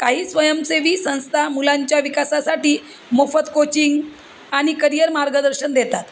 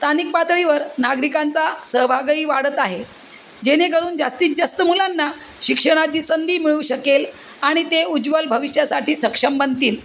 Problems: constant background noise